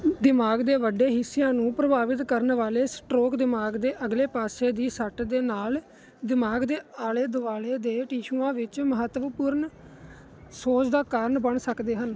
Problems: none marked